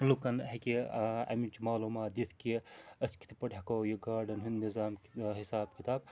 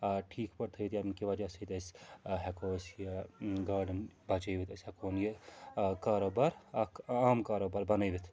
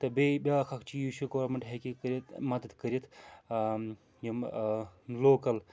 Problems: constant background noise